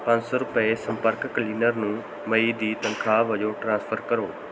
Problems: none marked